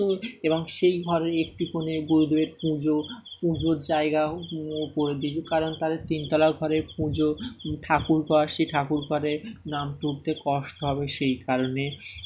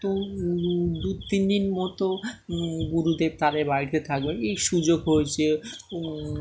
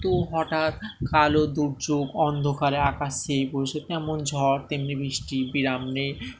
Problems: none marked